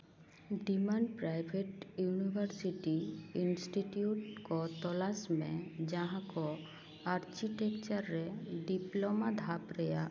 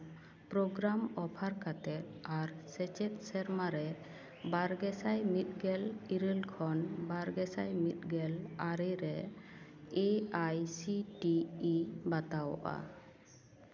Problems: none marked